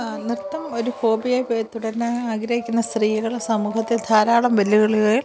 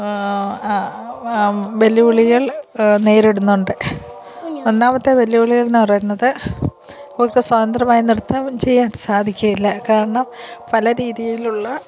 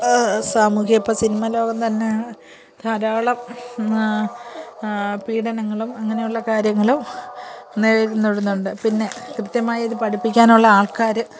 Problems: continuous background conversations